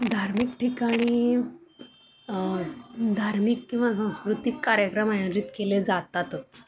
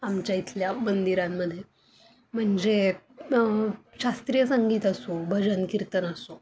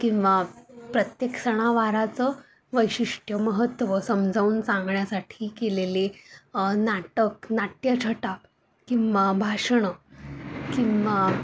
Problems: constant background noise